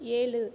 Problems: low volume